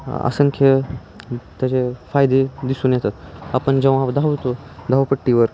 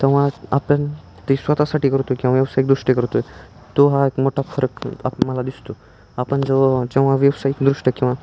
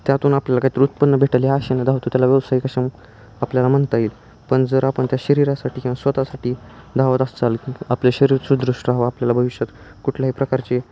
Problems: none marked